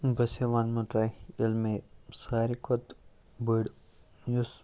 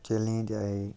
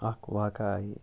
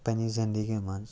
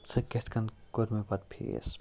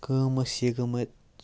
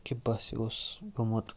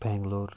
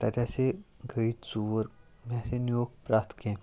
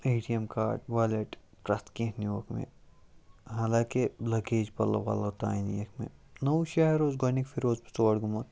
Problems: none marked